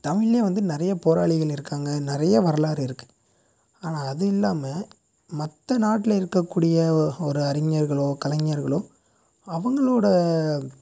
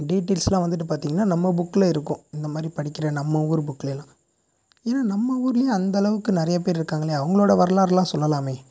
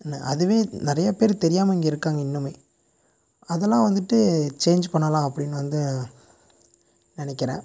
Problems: background sounds at intervals, low volume